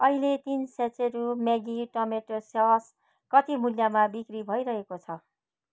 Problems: none marked